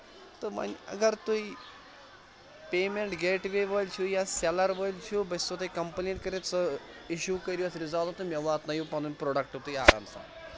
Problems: constant background noise